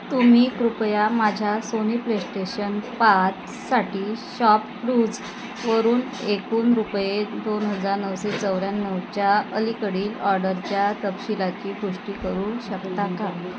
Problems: constant background noise, background conversations at intervals